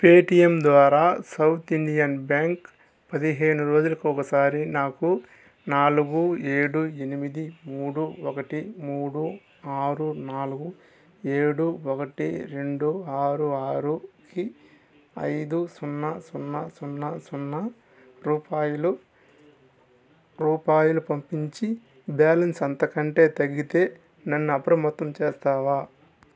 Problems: constant background noise